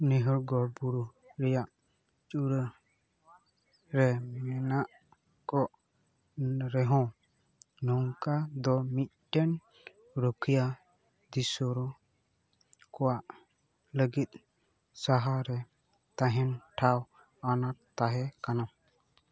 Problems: background sounds at intervals